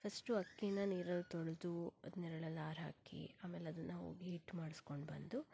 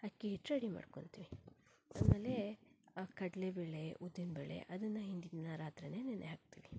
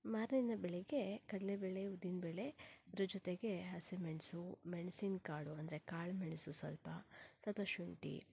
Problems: low volume